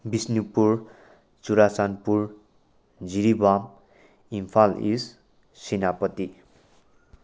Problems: none marked